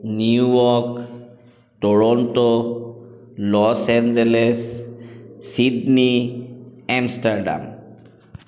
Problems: echo